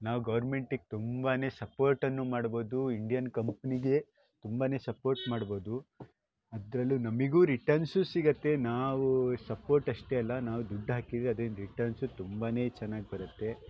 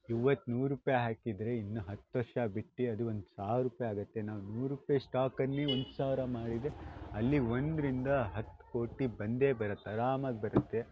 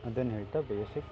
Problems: background sounds at intervals